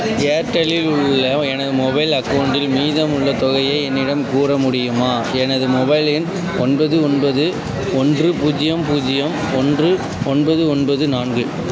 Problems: constant background noise, continuous background conversations